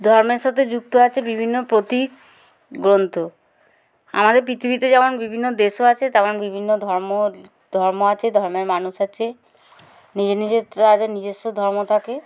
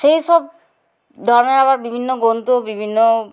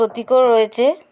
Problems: none marked